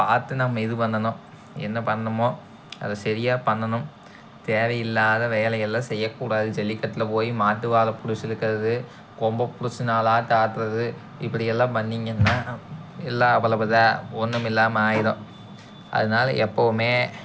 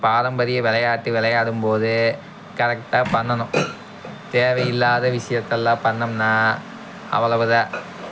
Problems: background sounds at intervals